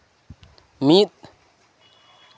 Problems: constant background noise